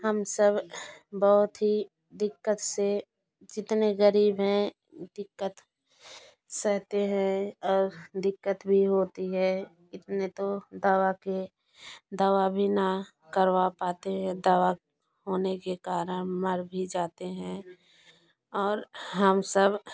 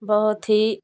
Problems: constant background noise